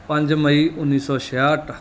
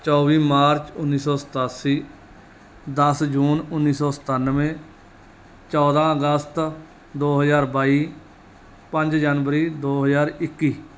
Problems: none marked